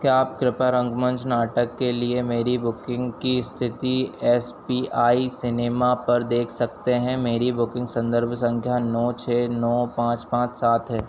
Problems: constant background noise